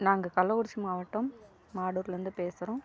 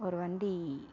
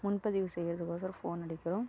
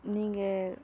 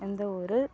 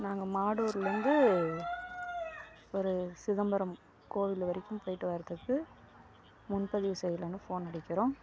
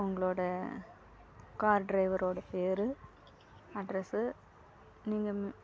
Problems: background conversations at intervals, low volume